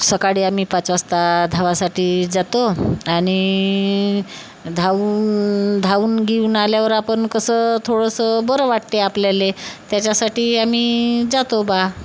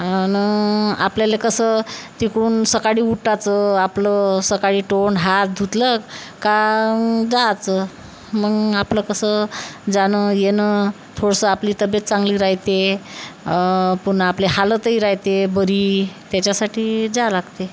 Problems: none marked